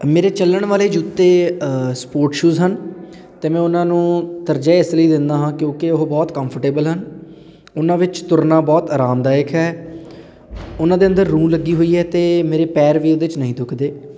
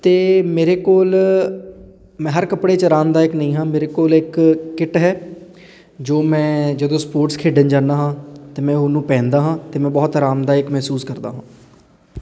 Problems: background conversations at intervals